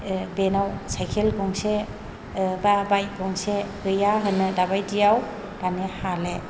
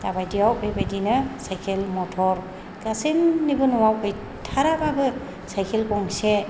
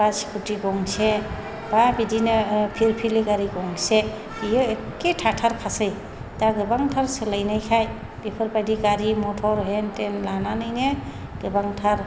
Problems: none marked